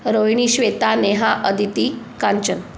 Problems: none marked